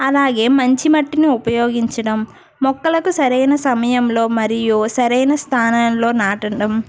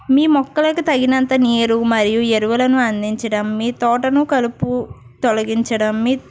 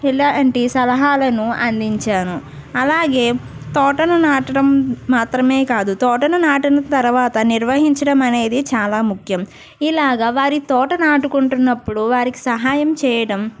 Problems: background sounds at intervals